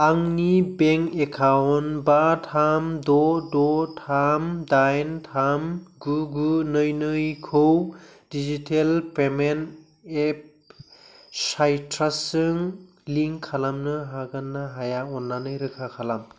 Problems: none marked